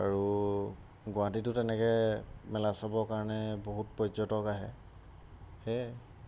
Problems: none marked